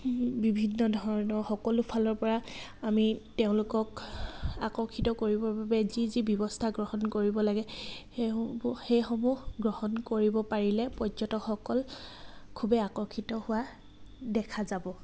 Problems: none marked